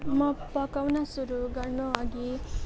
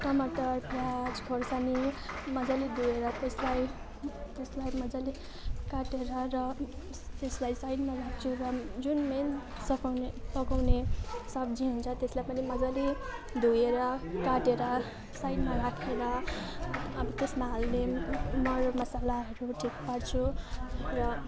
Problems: constant background noise, continuous background conversations